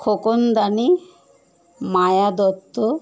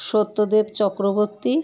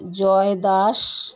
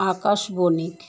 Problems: constant background noise, background conversations at intervals